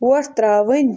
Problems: background sounds at intervals